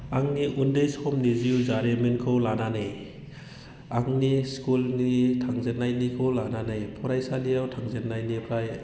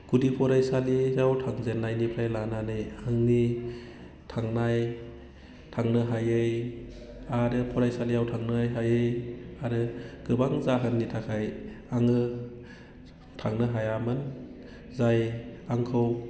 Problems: low volume